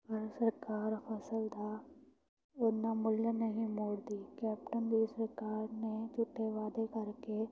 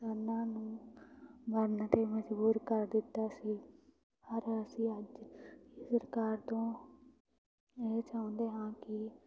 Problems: constant background noise